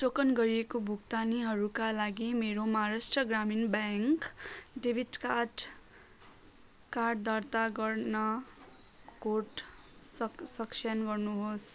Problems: background sounds at intervals